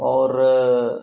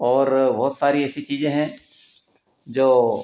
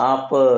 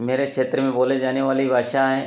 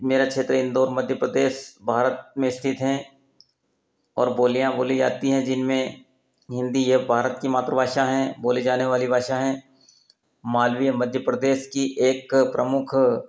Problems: none marked